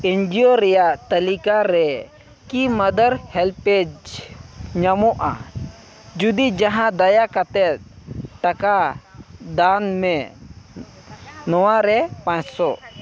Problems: constant background noise, background conversations at intervals